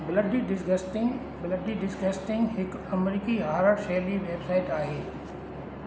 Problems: constant background noise, echo